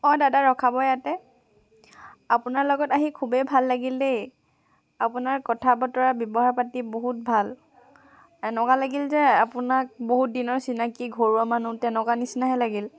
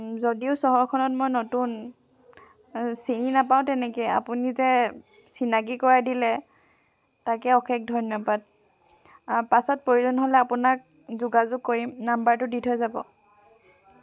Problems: background sounds at intervals